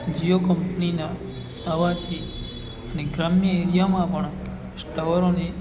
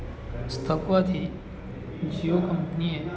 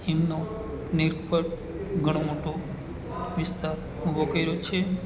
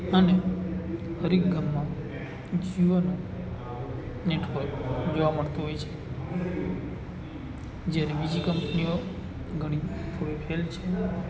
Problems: continuous background conversations